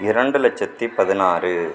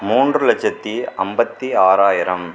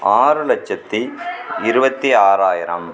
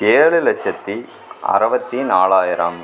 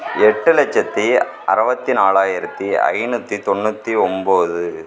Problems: background sounds at intervals